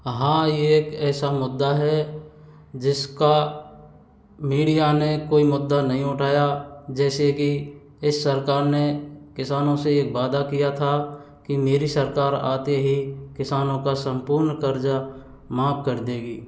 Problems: background sounds at intervals